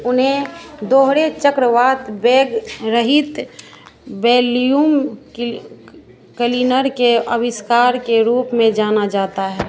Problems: constant background noise